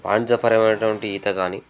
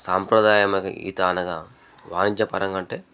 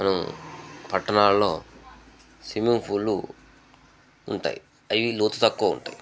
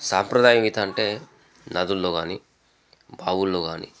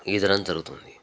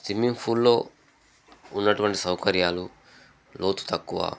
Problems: background sounds at intervals, background conversations at intervals